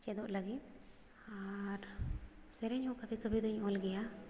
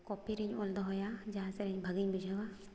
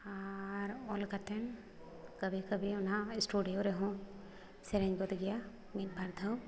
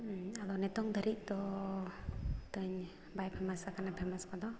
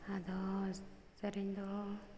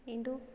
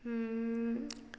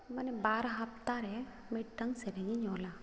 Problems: background sounds at intervals